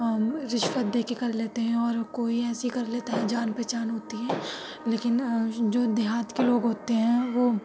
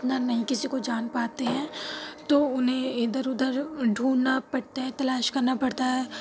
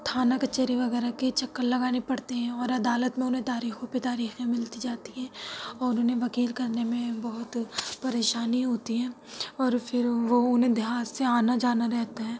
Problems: constant background noise